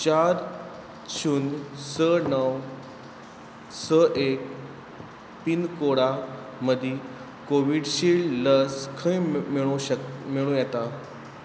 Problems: background sounds at intervals